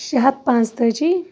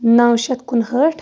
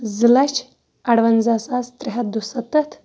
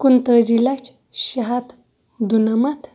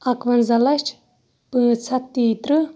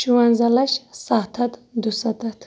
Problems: background sounds at intervals